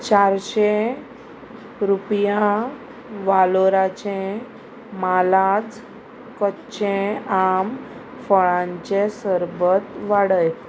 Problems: constant background noise